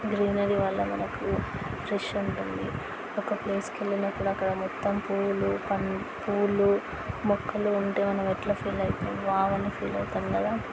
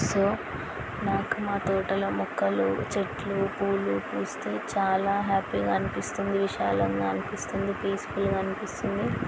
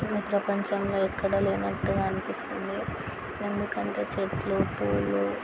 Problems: constant background noise, background conversations at intervals